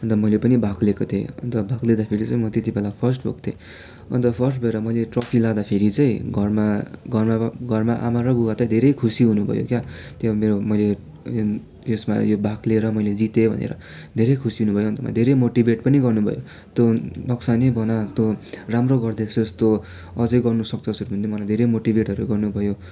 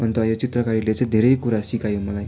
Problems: continuous background conversations